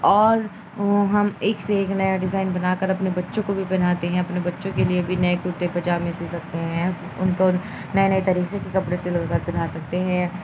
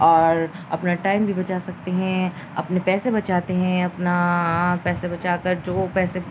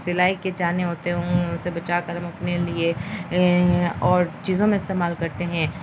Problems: constant background noise, low volume